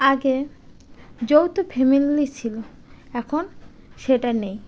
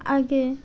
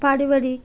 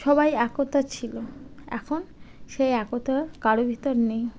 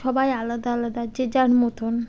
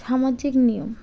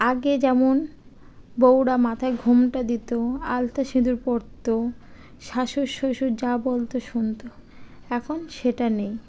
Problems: none marked